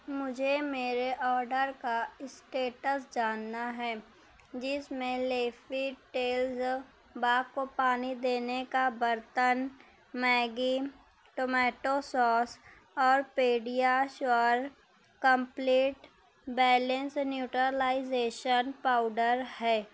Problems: constant background noise